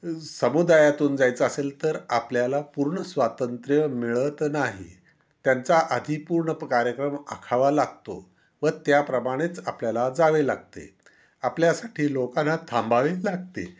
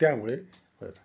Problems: background sounds at intervals